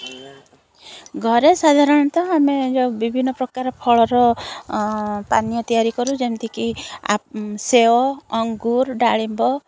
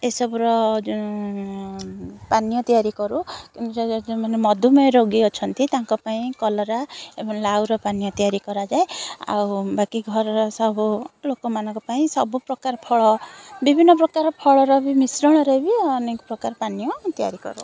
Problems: constant background noise